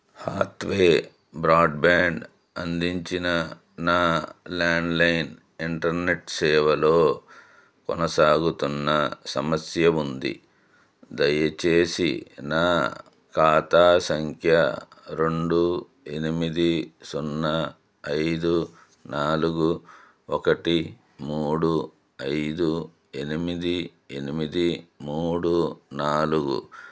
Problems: none marked